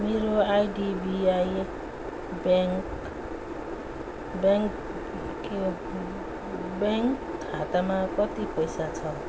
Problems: background sounds at intervals